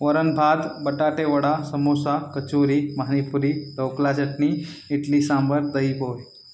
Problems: none marked